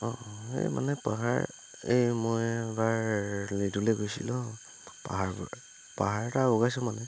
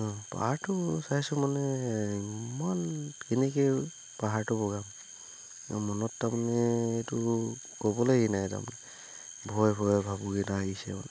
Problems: background sounds at intervals